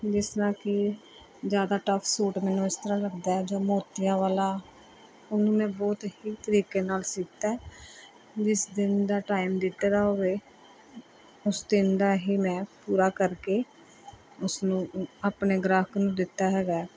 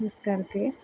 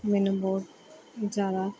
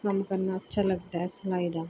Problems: none marked